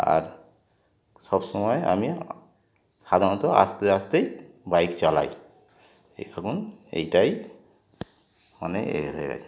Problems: background sounds at intervals